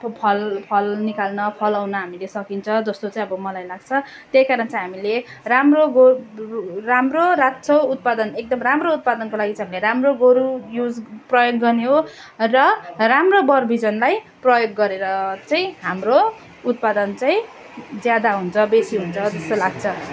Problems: continuous background conversations